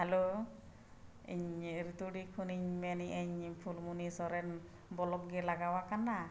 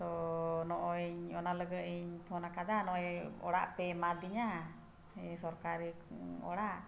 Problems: none marked